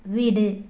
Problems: none marked